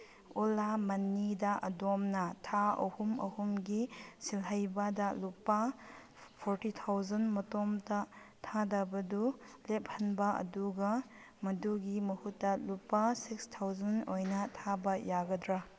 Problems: background sounds at intervals